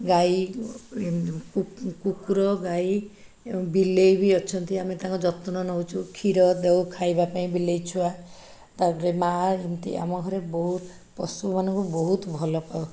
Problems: background sounds at intervals